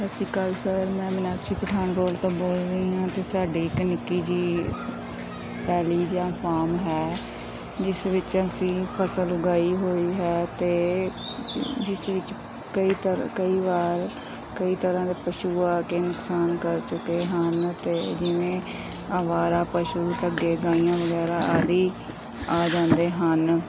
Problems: constant background noise